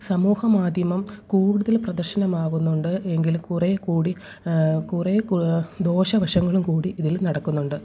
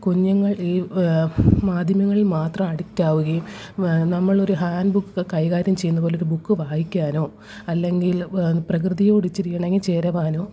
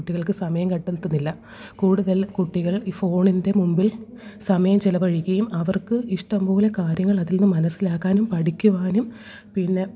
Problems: low volume